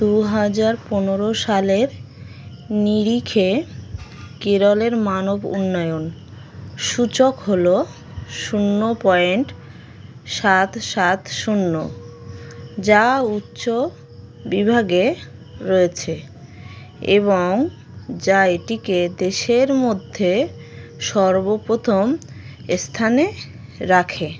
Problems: constant background noise